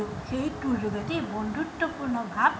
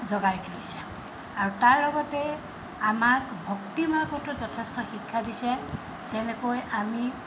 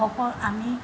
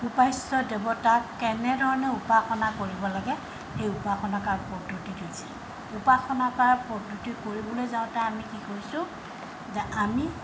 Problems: background sounds at intervals